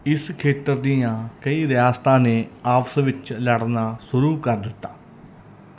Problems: none marked